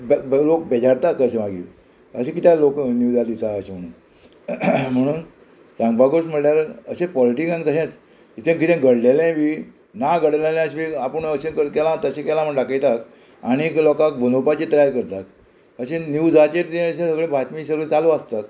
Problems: constant background noise